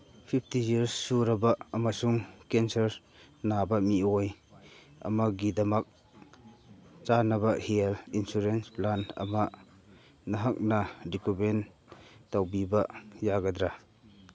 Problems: constant background noise, background conversations at intervals